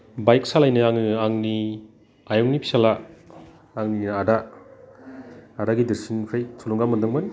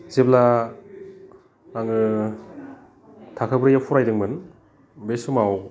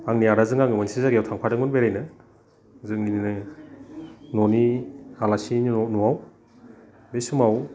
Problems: constant background noise